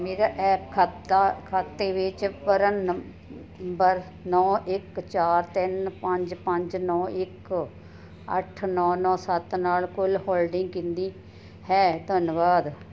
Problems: none marked